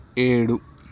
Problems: none marked